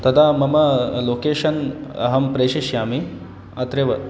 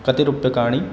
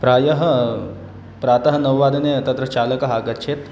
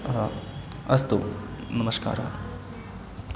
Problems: constant background noise